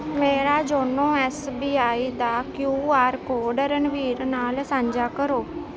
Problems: constant background noise